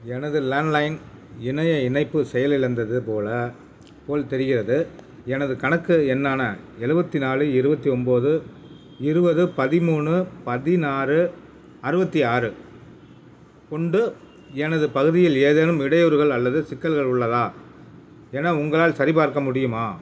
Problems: none marked